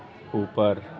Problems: constant background noise, continuous background conversations